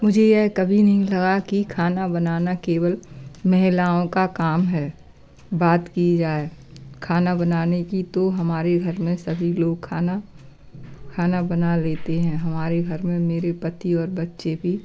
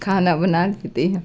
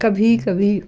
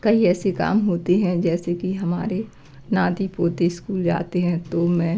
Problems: none marked